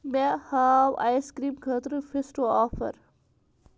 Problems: background sounds at intervals